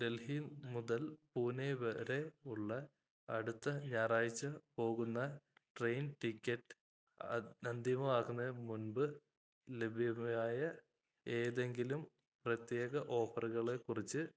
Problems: low volume